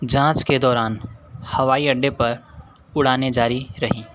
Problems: none marked